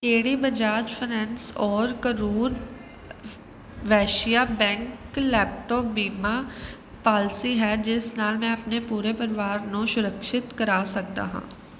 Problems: none marked